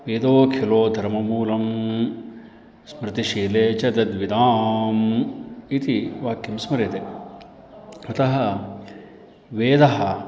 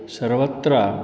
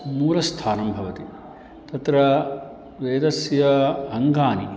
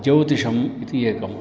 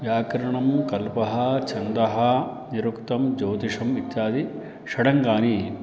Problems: background sounds at intervals, background conversations at intervals